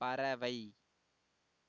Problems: low volume